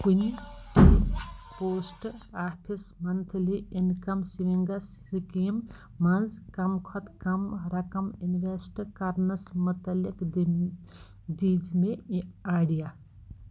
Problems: background sounds at intervals